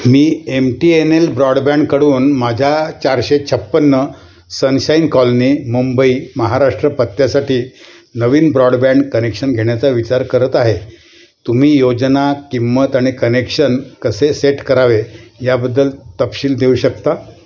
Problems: constant background noise, background conversations at intervals